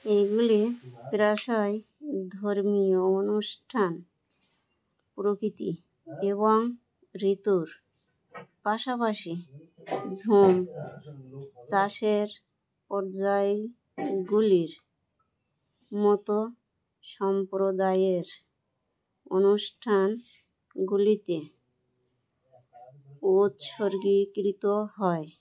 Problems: none marked